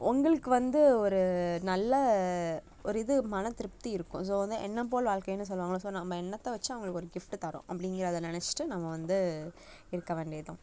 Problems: constant background noise